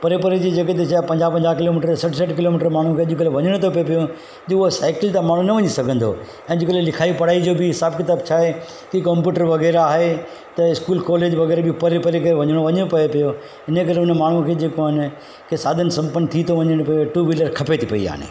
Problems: constant background noise, echo